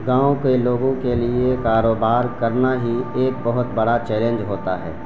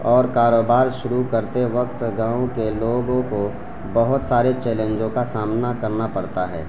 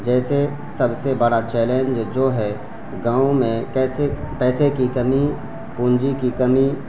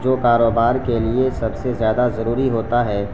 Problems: constant background noise